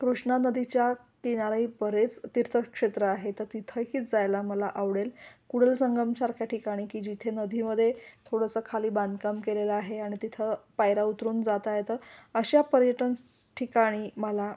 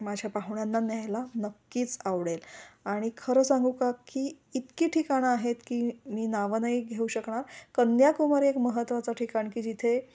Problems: none marked